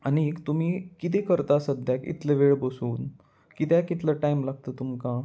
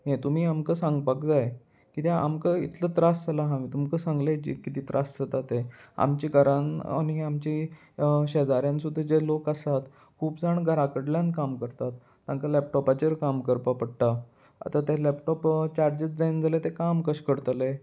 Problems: none marked